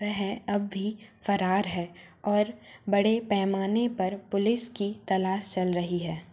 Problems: constant background noise